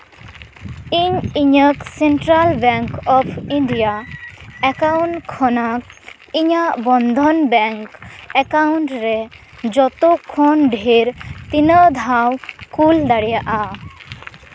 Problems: constant background noise, background conversations at intervals